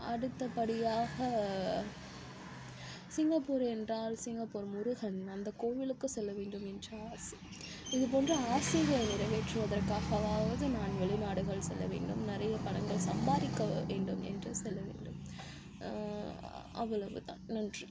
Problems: constant background noise, low volume